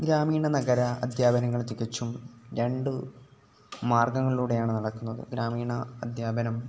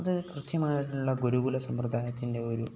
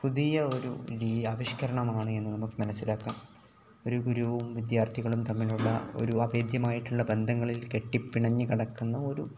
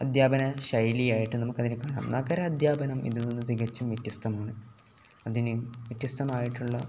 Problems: background sounds at intervals